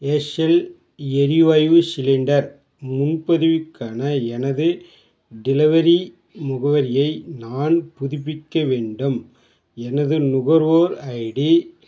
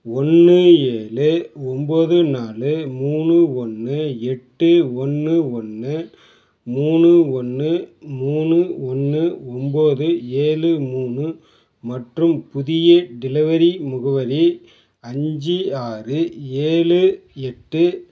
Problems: background sounds at intervals